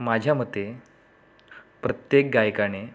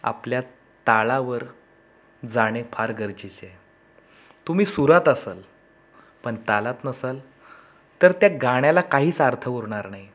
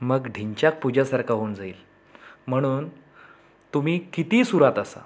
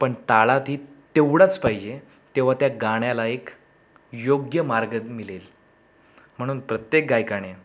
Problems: background sounds at intervals, background conversations at intervals